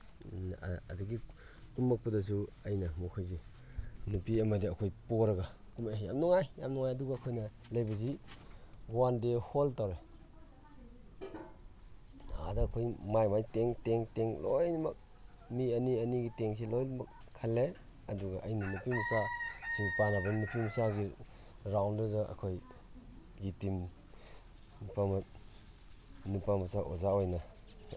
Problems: none marked